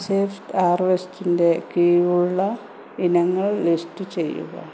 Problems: constant background noise